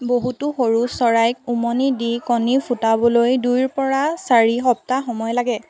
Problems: none marked